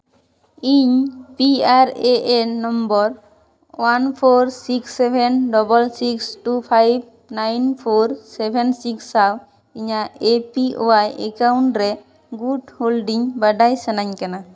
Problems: background sounds at intervals, echo